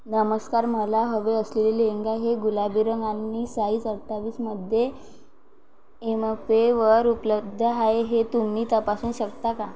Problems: background sounds at intervals